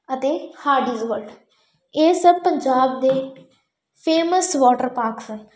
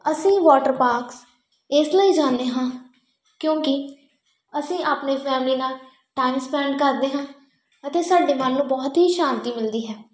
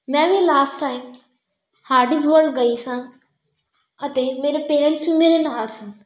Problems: background sounds at intervals